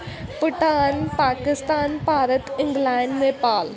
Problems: constant background noise